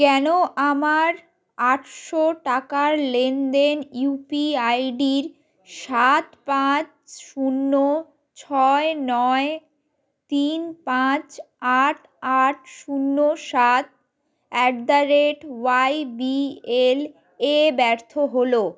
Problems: continuous background conversations